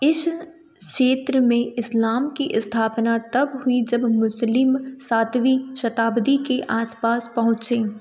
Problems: none marked